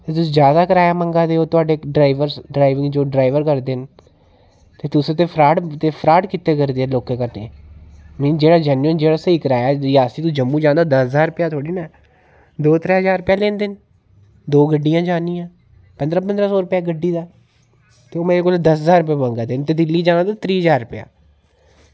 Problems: none marked